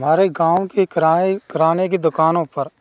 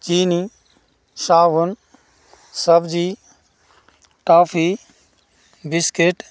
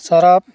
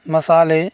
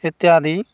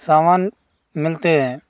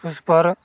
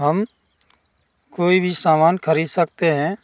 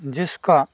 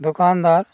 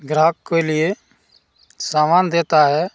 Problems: background sounds at intervals